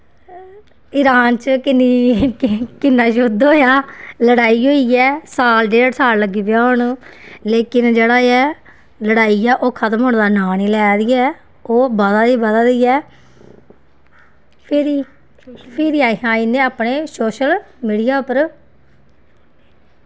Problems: constant background noise